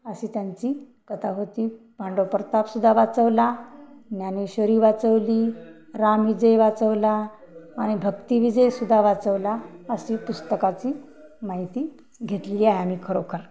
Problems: background conversations at intervals